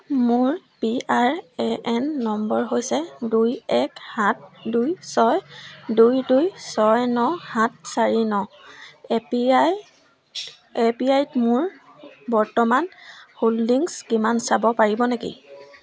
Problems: none marked